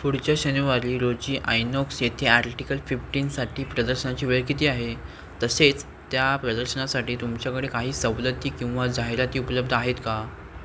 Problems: constant background noise